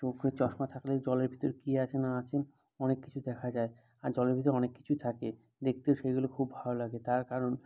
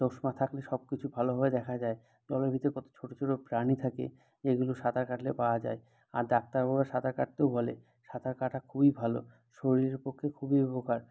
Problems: none marked